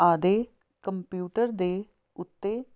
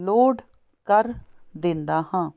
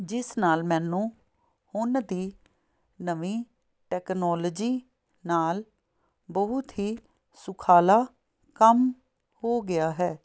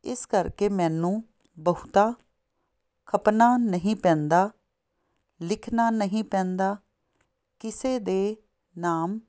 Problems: none marked